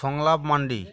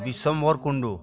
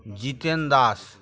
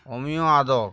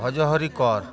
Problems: none marked